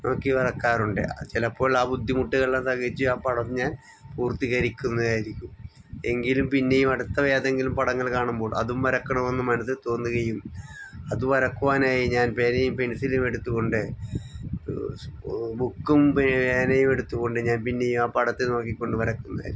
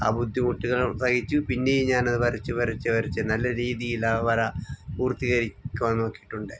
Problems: background sounds at intervals